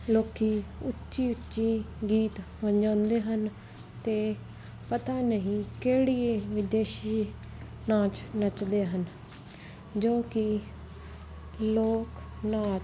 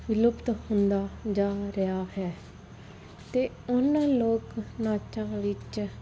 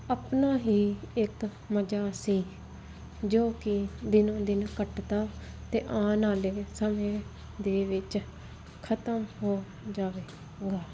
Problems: constant background noise